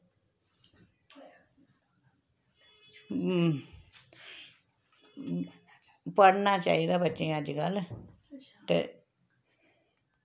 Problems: constant background noise